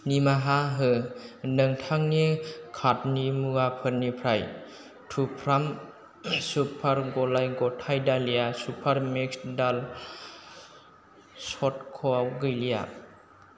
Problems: low volume